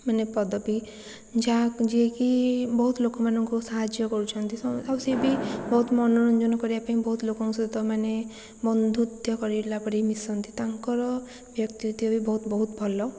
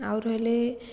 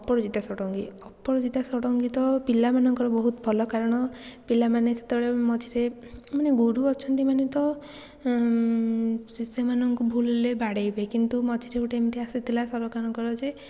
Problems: constant background noise